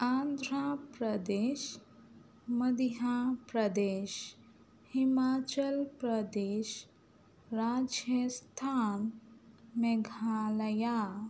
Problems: none marked